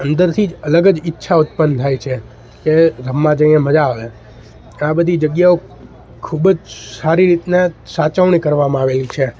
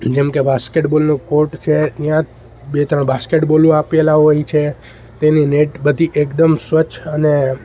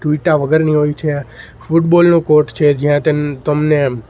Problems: background sounds at intervals